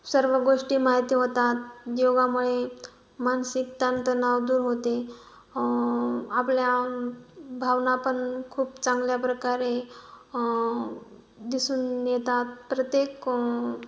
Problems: background sounds at intervals